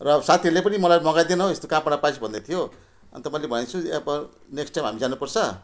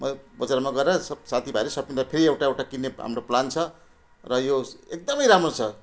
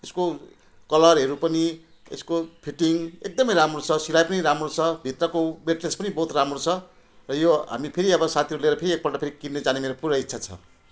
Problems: none marked